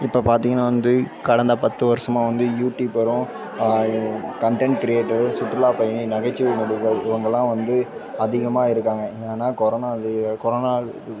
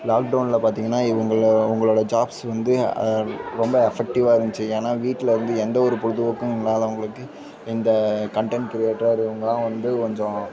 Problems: constant background noise, continuous background conversations